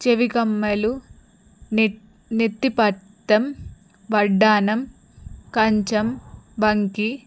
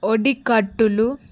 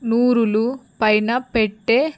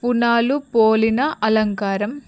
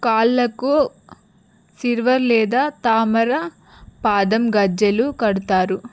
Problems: background sounds at intervals